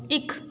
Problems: background sounds at intervals, background conversations at intervals